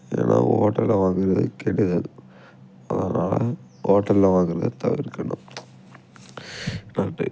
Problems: background sounds at intervals